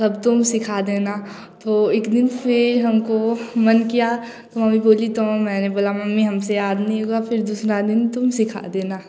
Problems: none marked